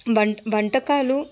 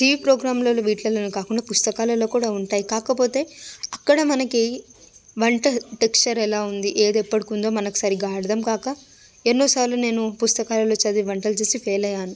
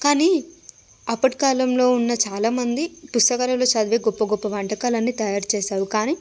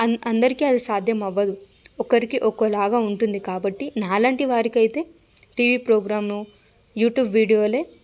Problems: background sounds at intervals, background conversations at intervals